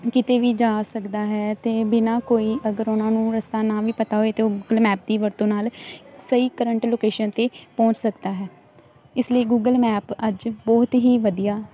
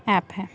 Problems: none marked